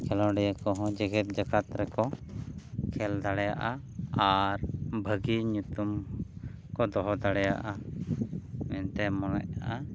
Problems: constant background noise